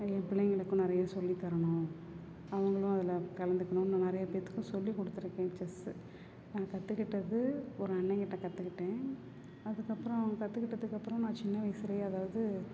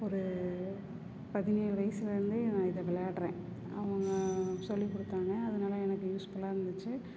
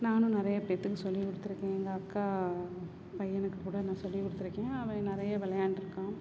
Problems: constant background noise, background conversations at intervals